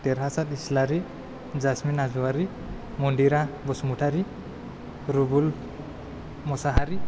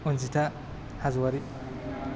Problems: none marked